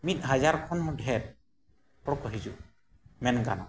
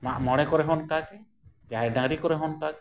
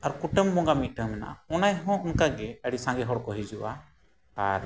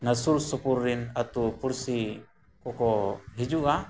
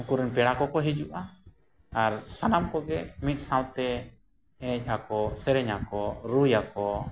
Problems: background sounds at intervals